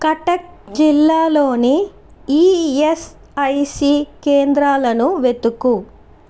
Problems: constant background noise